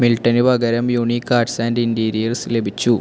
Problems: constant background noise